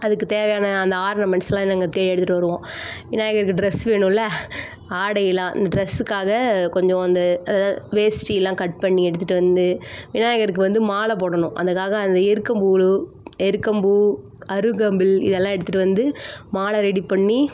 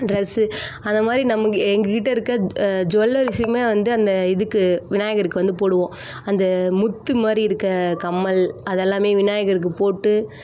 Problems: constant background noise, background conversations at intervals